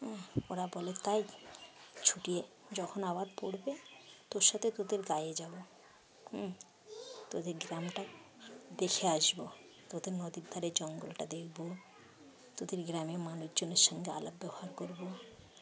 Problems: none marked